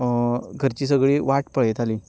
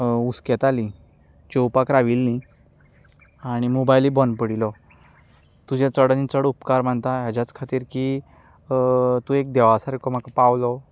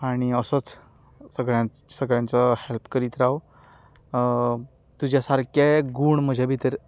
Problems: background sounds at intervals